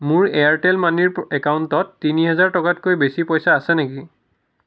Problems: none marked